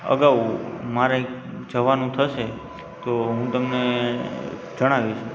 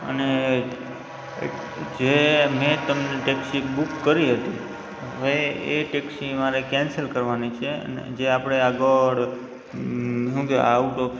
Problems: background sounds at intervals